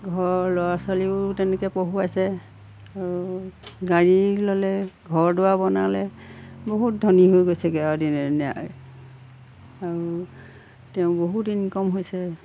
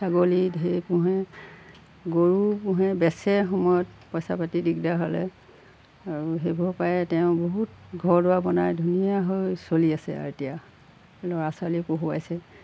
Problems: background sounds at intervals